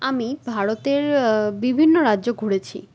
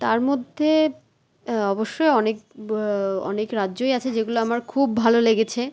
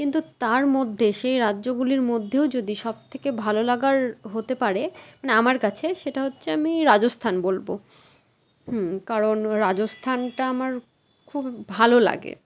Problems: none marked